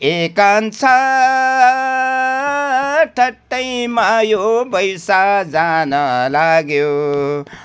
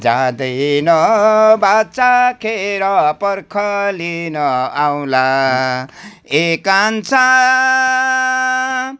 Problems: background sounds at intervals